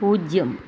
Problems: constant background noise